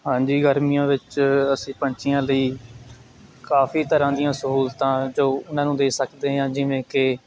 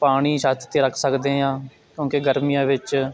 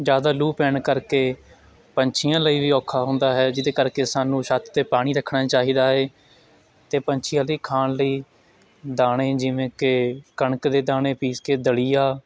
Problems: continuous background conversations